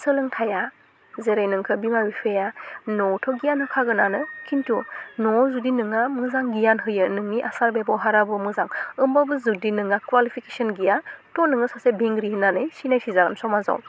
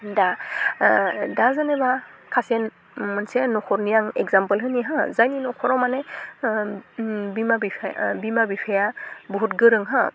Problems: constant background noise